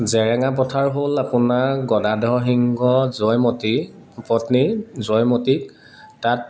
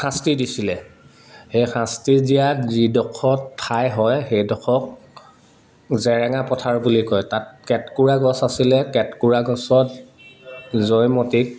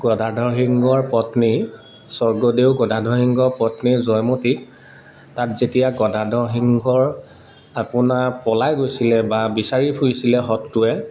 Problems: constant background noise, background conversations at intervals